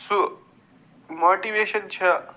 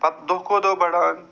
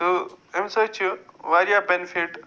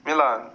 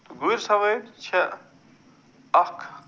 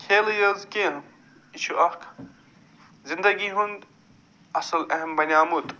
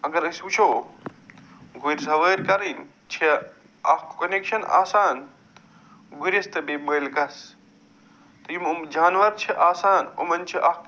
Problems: none marked